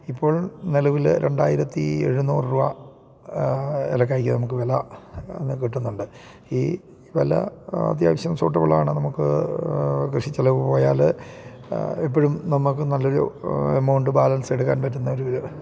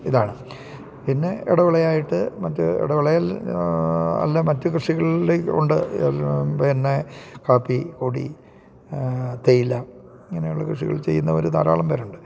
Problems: none marked